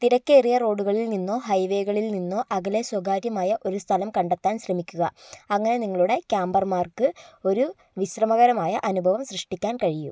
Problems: none marked